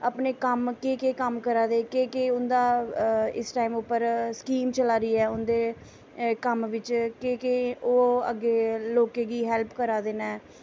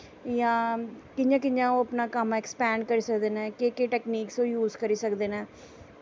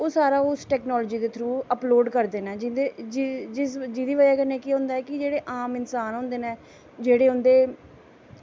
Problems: none marked